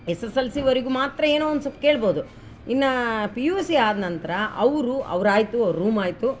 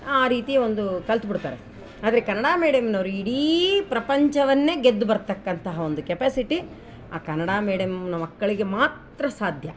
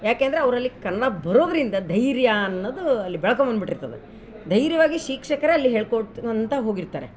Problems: background sounds at intervals